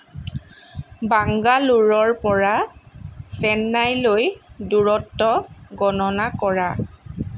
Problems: constant background noise